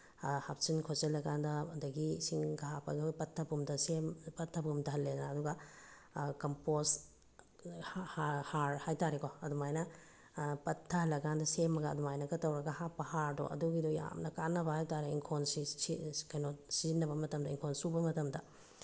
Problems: background sounds at intervals